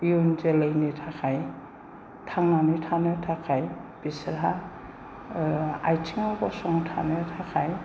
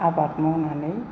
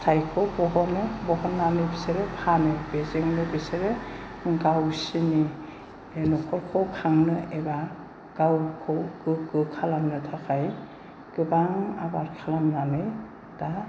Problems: low volume